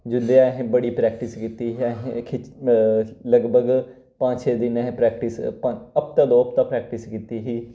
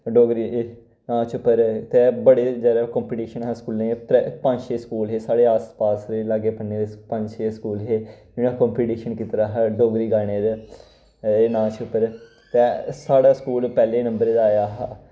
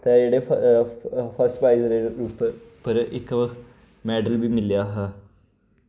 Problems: none marked